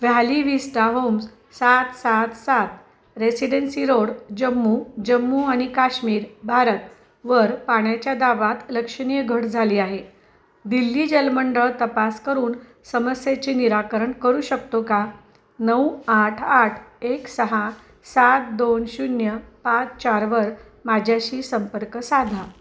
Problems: constant background noise, background conversations at intervals